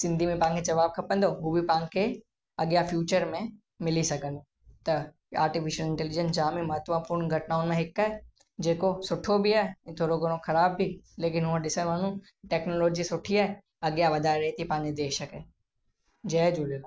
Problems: constant background noise, echo